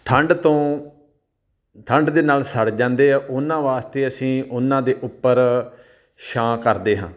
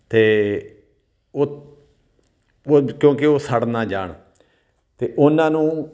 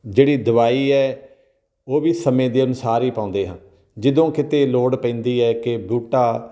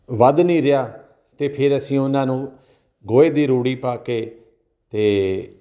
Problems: none marked